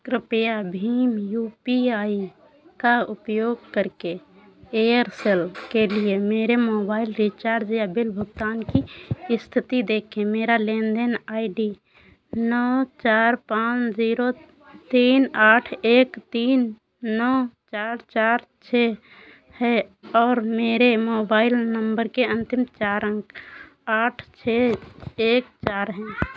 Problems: constant background noise